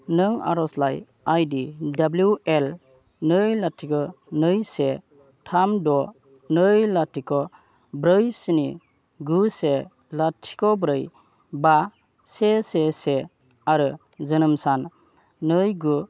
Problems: low volume